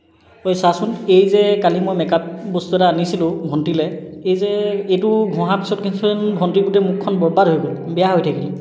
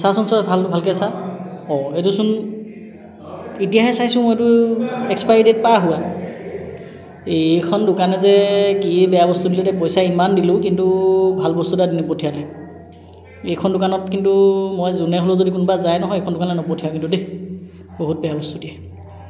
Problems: constant background noise